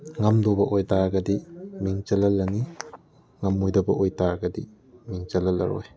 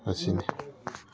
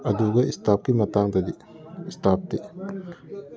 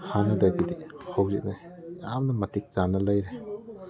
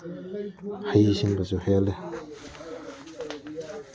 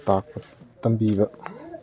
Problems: background conversations at intervals